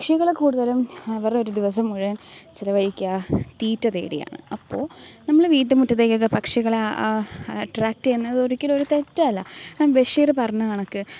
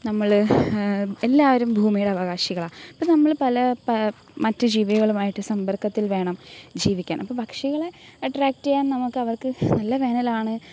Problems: background sounds at intervals